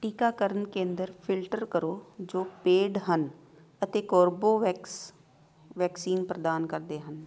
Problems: background sounds at intervals, background conversations at intervals